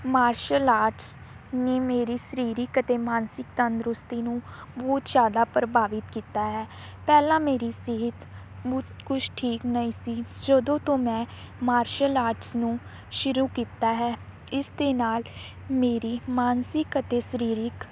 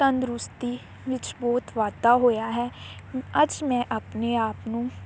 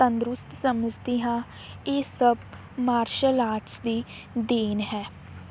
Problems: constant background noise